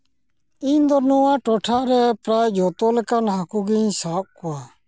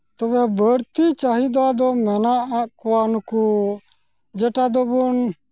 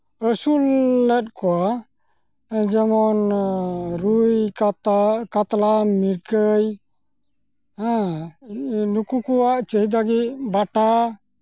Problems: none marked